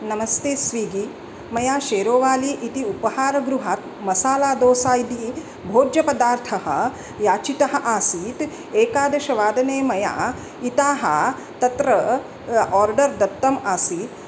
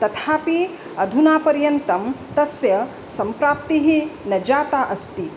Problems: constant background noise